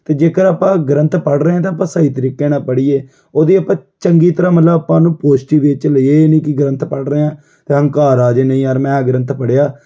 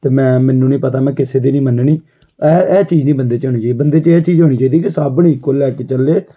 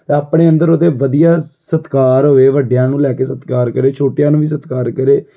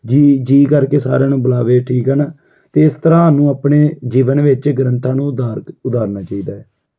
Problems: background sounds at intervals